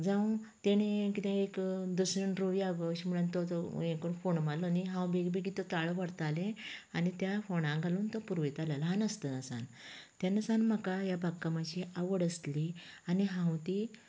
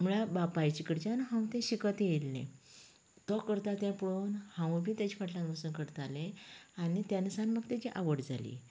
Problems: low volume